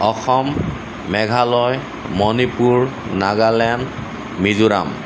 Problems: constant background noise